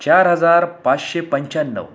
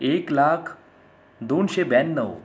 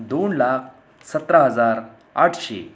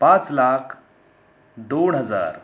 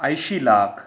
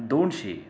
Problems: none marked